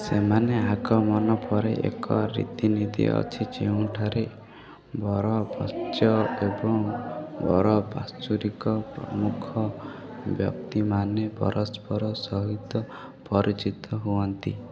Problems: constant background noise